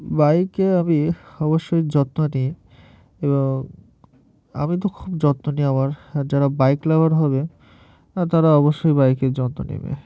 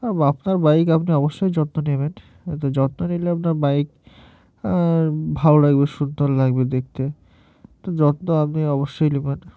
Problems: background sounds at intervals